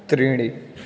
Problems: constant background noise